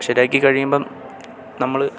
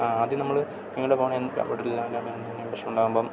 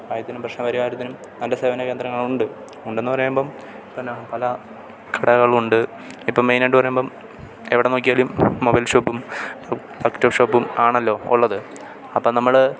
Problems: none marked